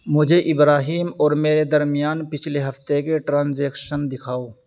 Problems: none marked